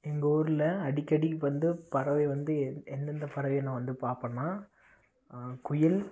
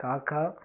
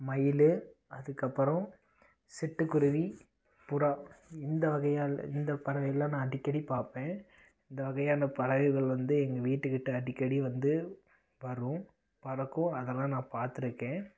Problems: none marked